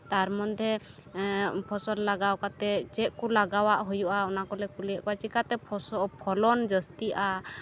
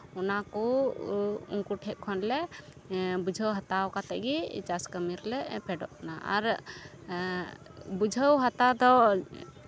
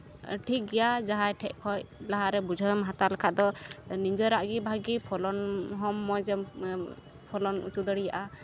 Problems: constant background noise